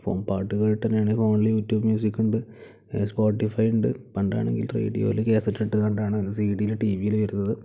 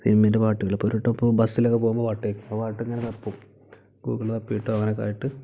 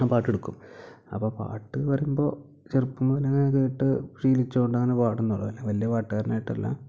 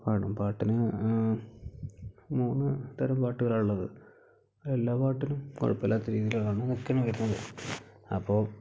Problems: low volume